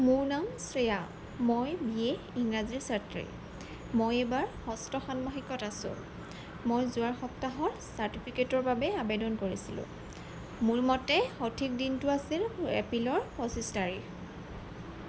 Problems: constant background noise